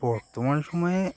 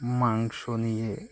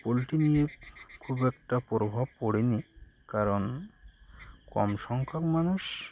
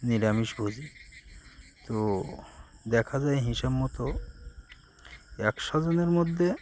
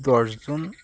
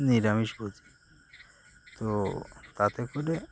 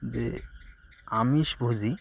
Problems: constant background noise